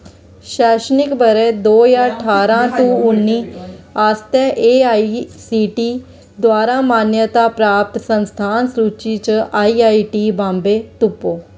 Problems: constant background noise